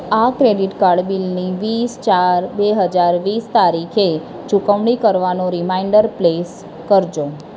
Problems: none marked